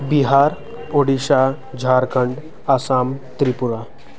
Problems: constant background noise, continuous background conversations